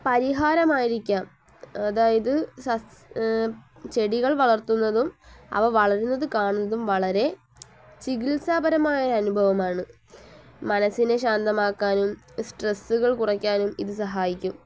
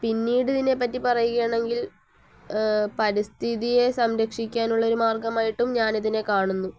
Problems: low volume